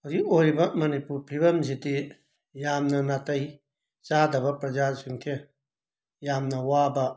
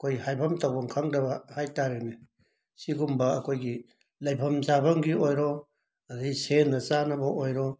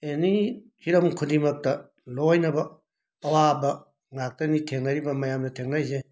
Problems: none marked